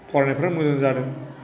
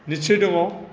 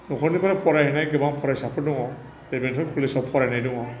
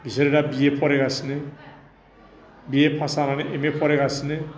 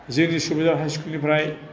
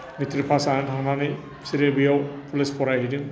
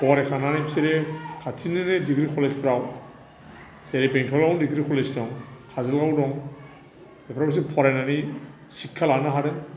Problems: constant background noise